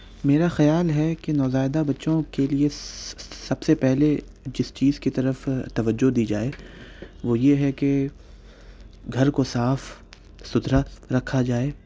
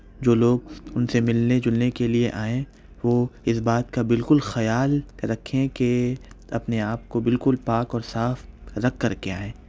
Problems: background sounds at intervals